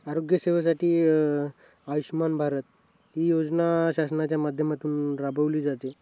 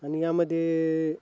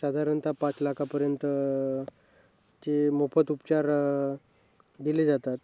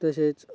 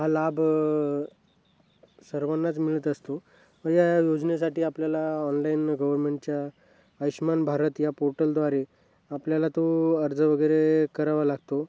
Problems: constant background noise, background conversations at intervals